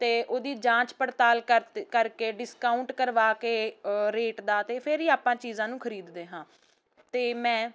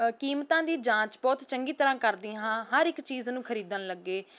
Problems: constant background noise